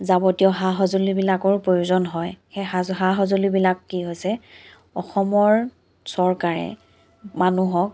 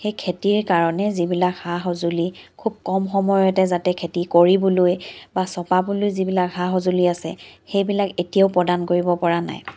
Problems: background sounds at intervals